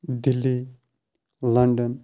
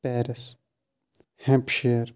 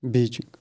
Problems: constant background noise